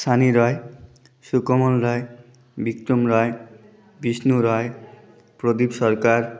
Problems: constant background noise, background conversations at intervals